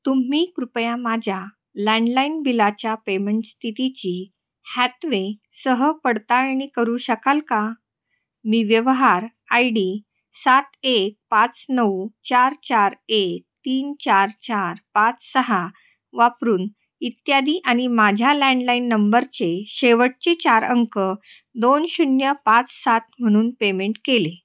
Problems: constant background noise, echo